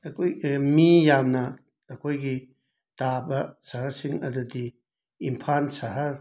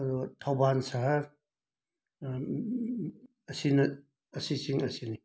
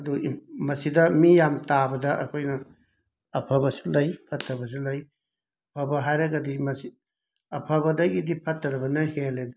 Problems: background sounds at intervals